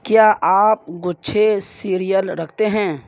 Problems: background sounds at intervals, low volume